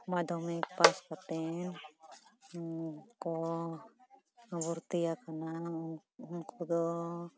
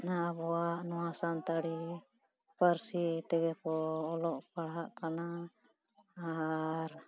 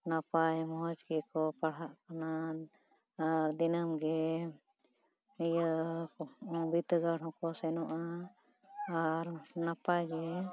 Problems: continuous background conversations